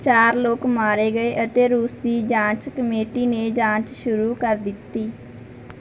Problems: background sounds at intervals